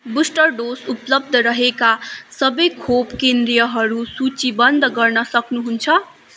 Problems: background sounds at intervals